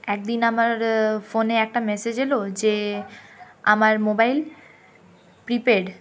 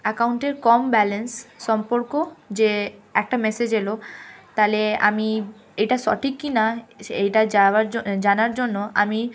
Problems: constant background noise, continuous background conversations